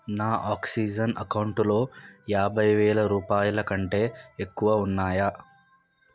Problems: none marked